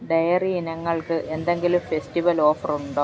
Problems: background sounds at intervals